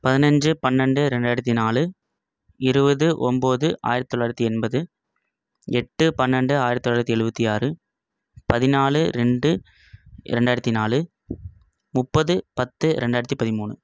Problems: none marked